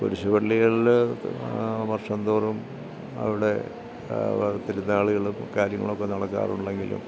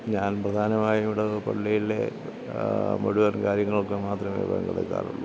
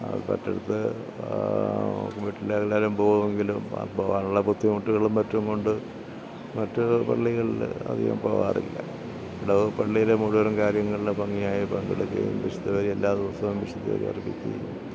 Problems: low volume